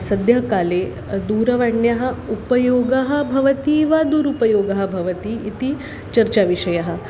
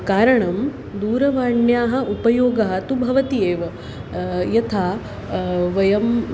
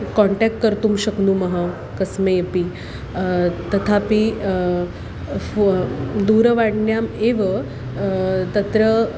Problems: constant background noise